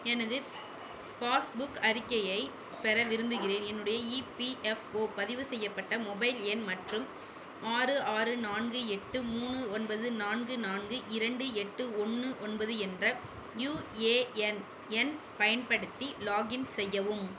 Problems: none marked